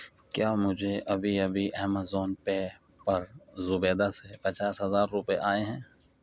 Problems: none marked